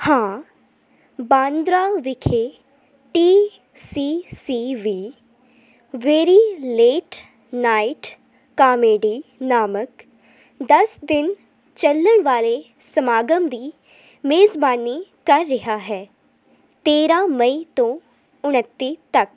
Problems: constant background noise